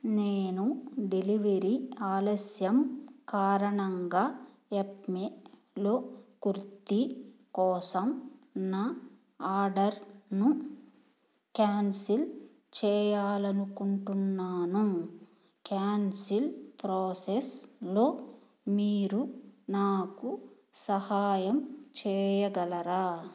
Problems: none marked